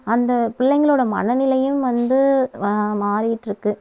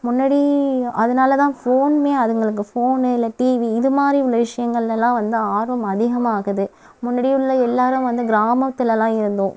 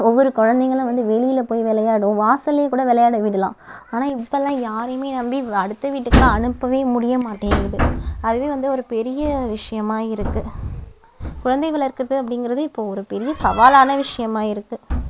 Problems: constant background noise